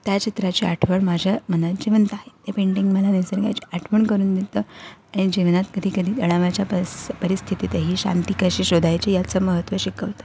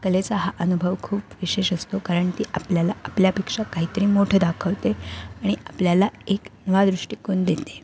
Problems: background sounds at intervals